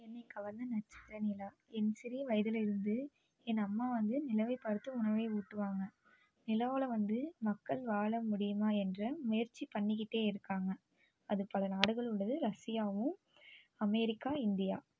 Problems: constant background noise, low volume